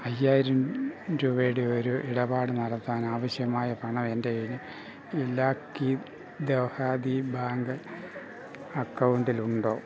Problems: background sounds at intervals, background conversations at intervals